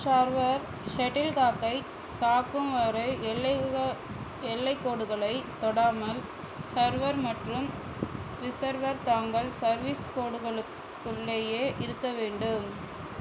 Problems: constant background noise